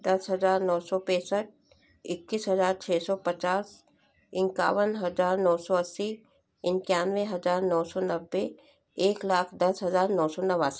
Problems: constant background noise